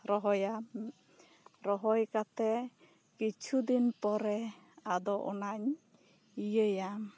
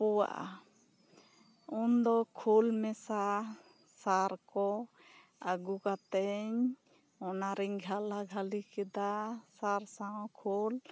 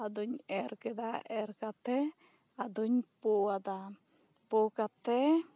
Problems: none marked